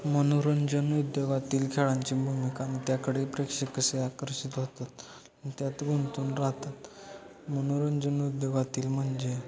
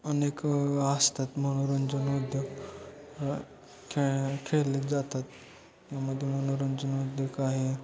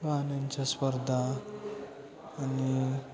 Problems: constant background noise, continuous background conversations